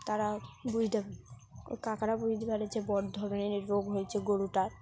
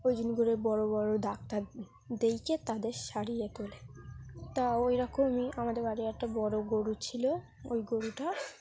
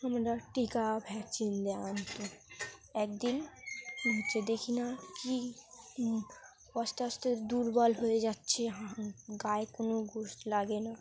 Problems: background conversations at intervals